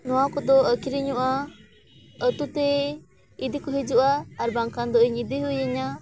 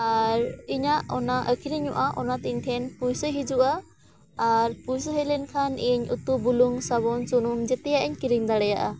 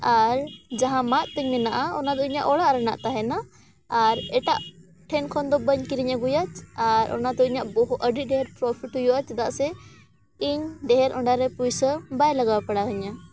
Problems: none marked